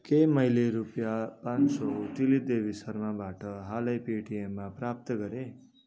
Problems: continuous background conversations